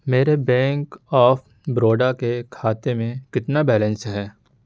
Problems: background sounds at intervals